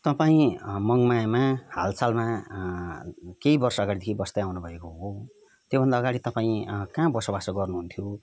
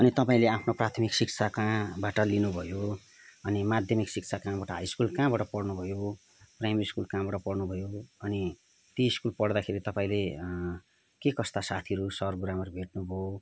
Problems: background conversations at intervals